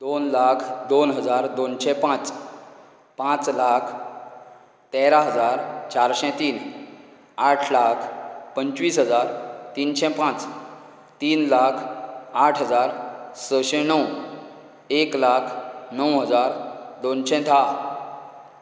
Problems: none marked